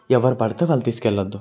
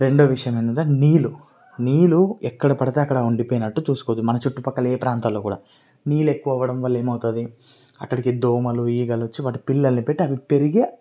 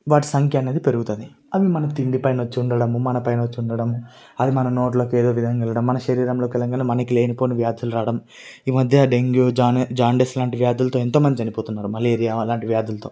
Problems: none marked